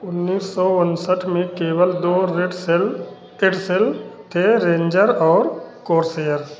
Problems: constant background noise, continuous background conversations